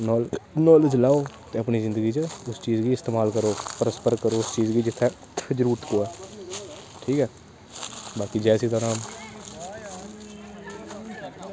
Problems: constant background noise